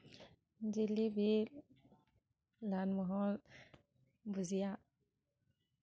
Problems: none marked